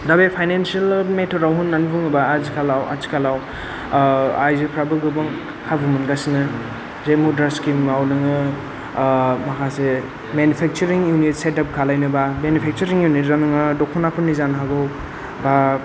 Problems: none marked